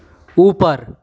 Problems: constant background noise